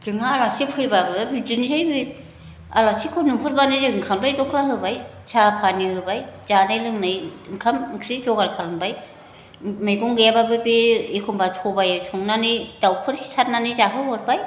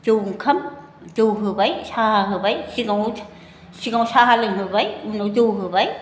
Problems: constant background noise